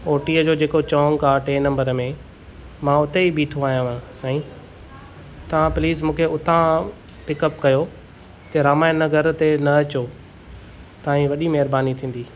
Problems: none marked